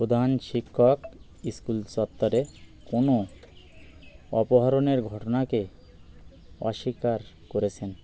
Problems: none marked